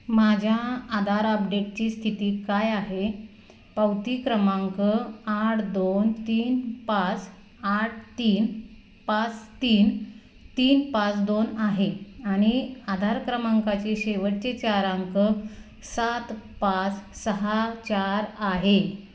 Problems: background sounds at intervals